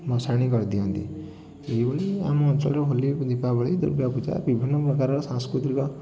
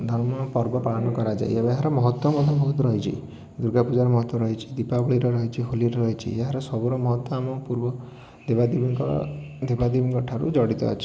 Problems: background sounds at intervals, continuous background conversations